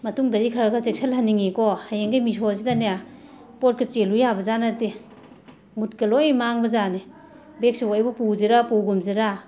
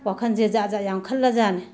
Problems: background sounds at intervals